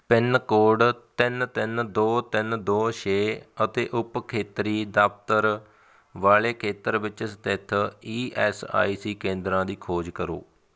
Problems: background sounds at intervals